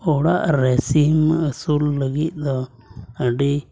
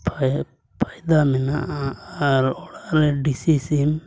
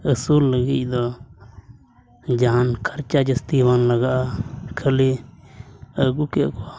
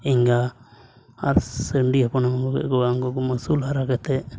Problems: constant background noise, low volume